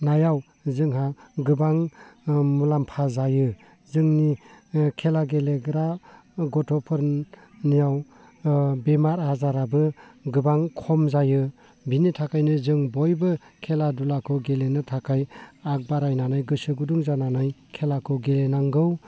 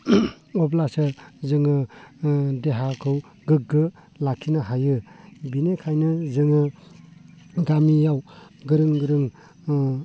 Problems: low volume